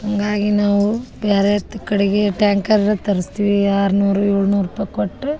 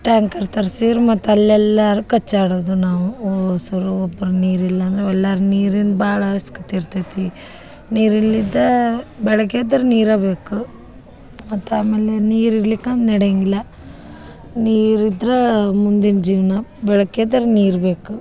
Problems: background sounds at intervals